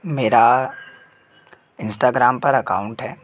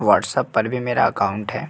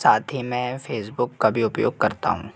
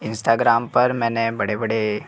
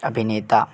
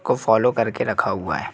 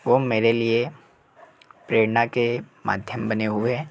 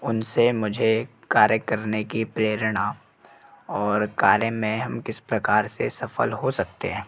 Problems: constant background noise, background conversations at intervals